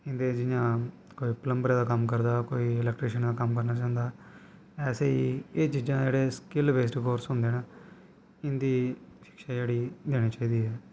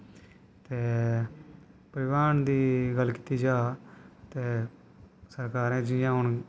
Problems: constant background noise